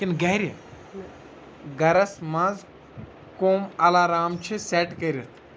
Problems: background conversations at intervals